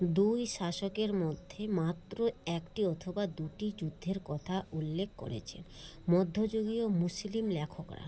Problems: none marked